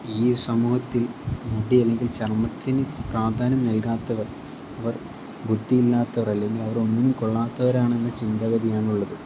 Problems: constant background noise, low volume